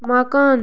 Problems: background sounds at intervals